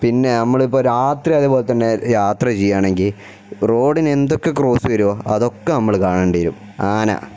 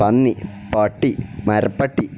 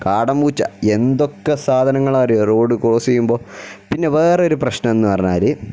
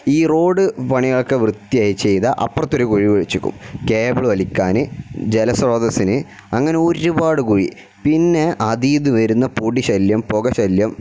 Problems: none marked